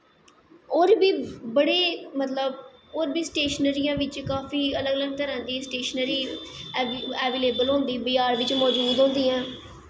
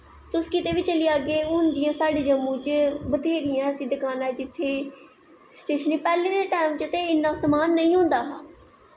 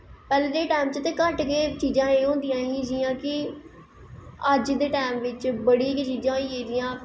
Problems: echo